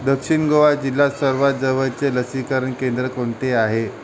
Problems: none marked